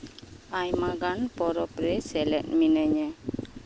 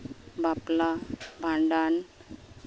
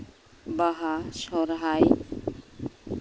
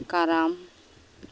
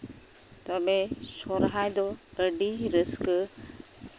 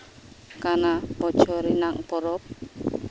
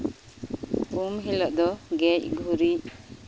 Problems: none marked